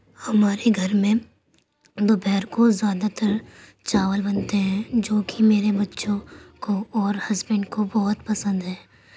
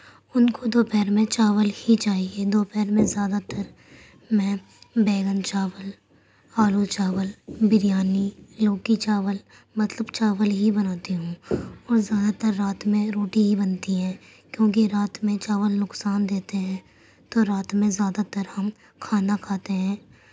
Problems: none marked